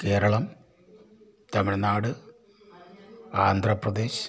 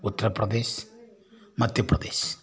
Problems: low volume